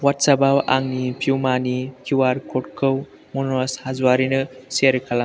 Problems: constant background noise